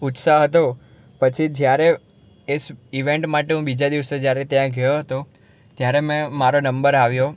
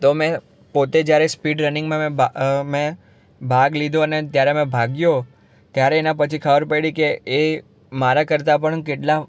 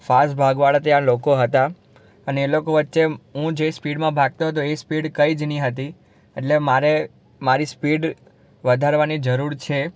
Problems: none marked